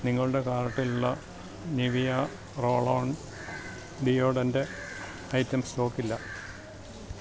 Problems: background sounds at intervals, low volume